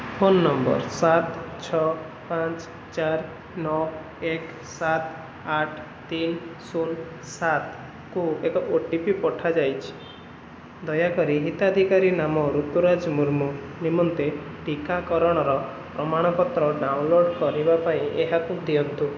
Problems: constant background noise